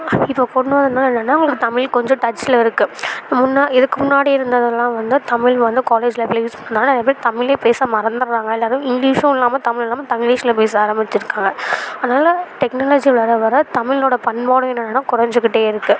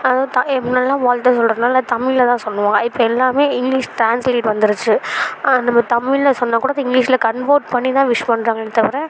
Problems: background sounds at intervals